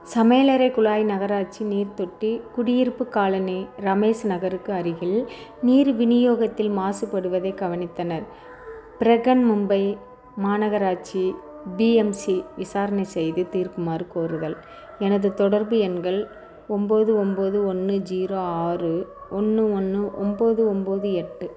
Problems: constant background noise